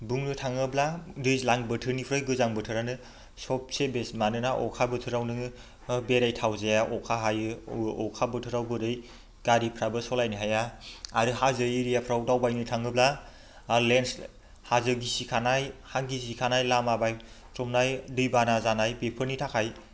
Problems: constant background noise